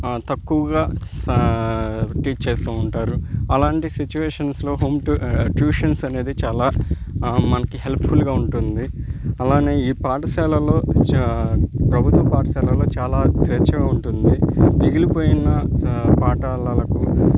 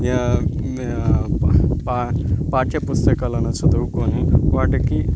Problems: constant background noise